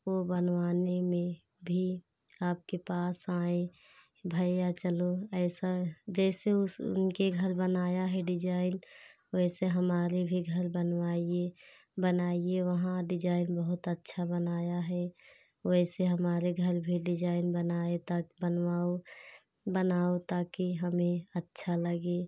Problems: constant background noise